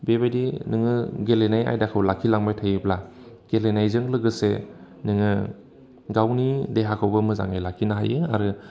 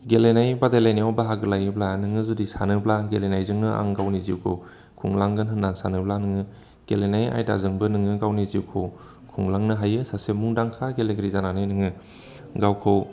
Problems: constant background noise